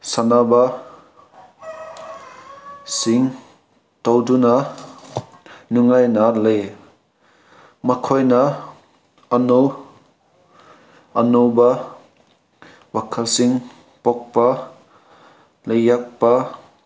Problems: none marked